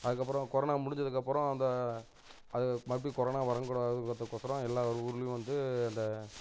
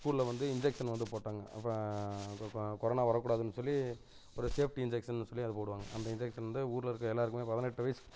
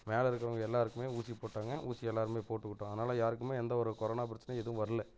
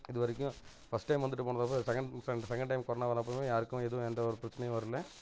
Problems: none marked